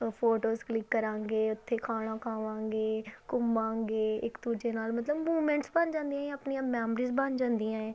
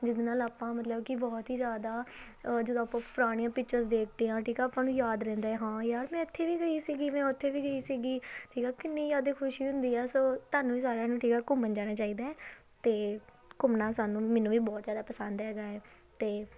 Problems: background sounds at intervals